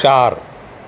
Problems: constant background noise